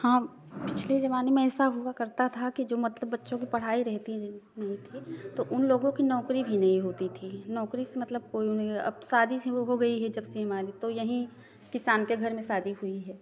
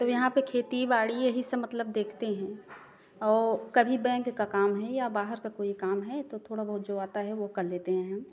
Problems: background sounds at intervals